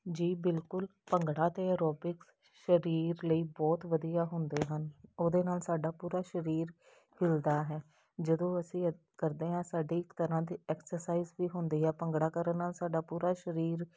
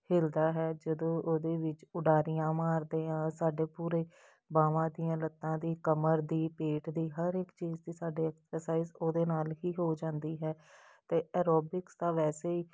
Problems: background sounds at intervals